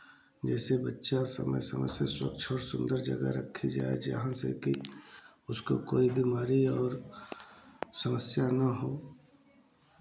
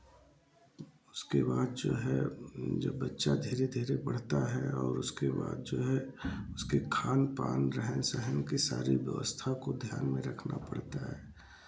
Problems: background sounds at intervals, low volume